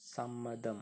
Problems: low volume